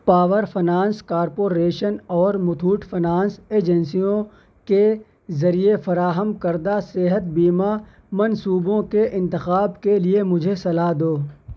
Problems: none marked